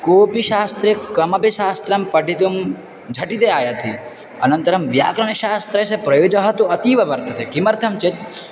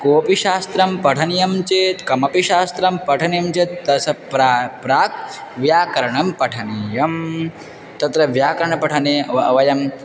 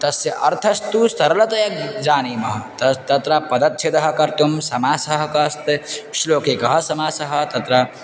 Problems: constant background noise, background conversations at intervals